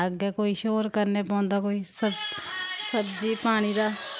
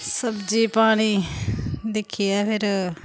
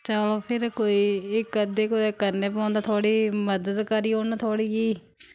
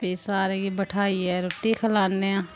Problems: background sounds at intervals